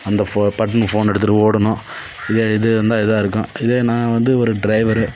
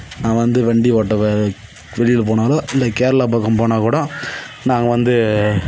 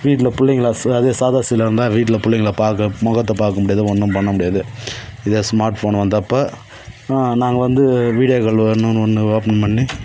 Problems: background sounds at intervals